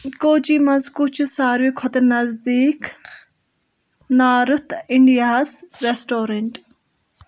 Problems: background sounds at intervals